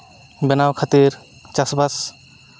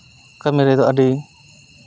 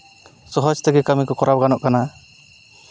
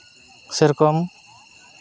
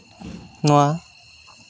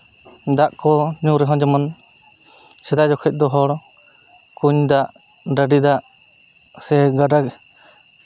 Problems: constant background noise